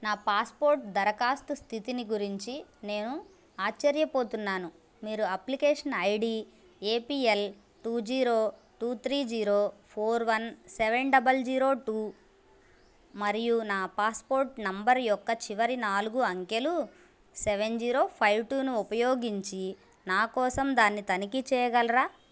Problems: none marked